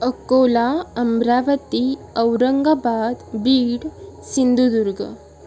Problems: none marked